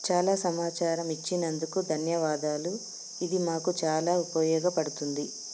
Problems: constant background noise